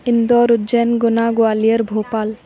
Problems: constant background noise, continuous background conversations